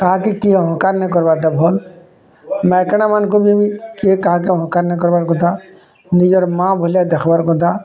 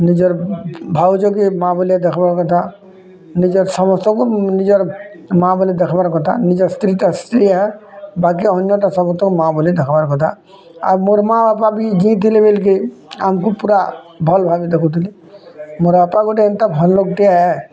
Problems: none marked